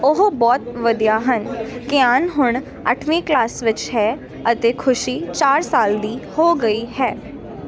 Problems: constant background noise